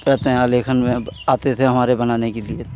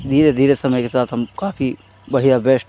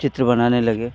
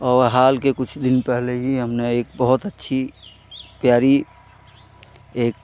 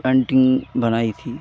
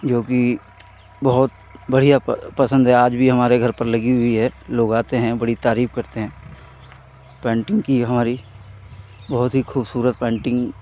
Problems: background sounds at intervals